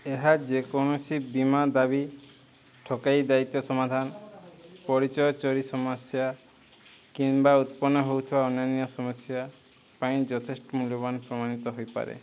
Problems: constant background noise